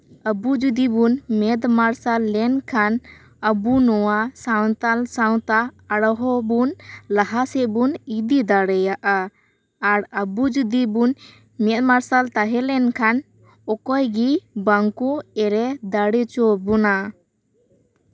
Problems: constant background noise